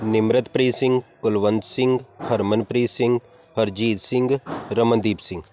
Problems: background sounds at intervals